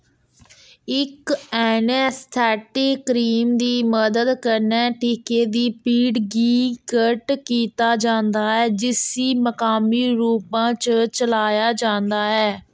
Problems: background sounds at intervals